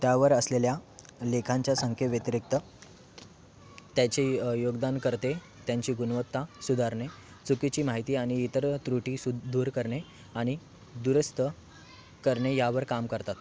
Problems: continuous background conversations